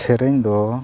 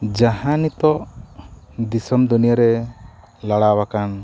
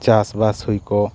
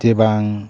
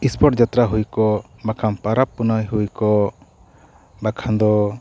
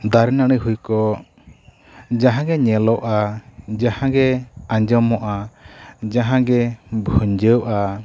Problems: none marked